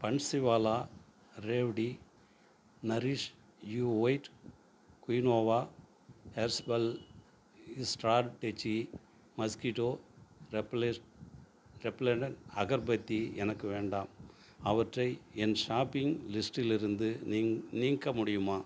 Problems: none marked